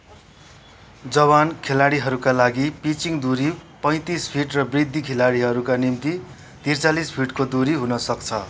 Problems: background conversations at intervals